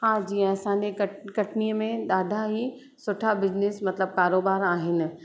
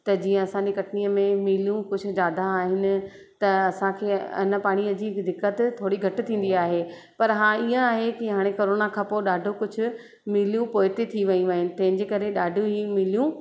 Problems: constant background noise, echo